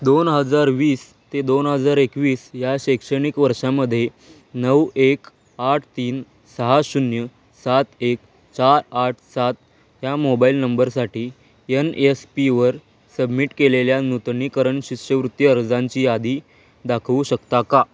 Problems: none marked